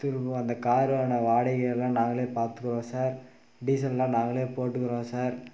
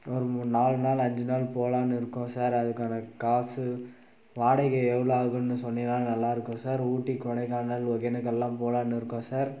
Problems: none marked